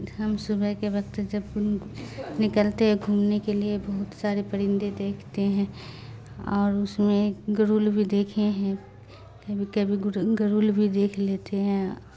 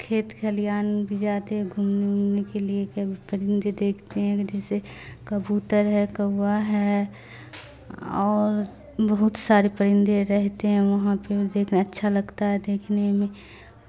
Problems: constant background noise